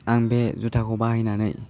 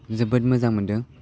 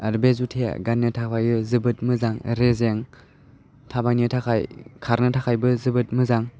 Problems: none marked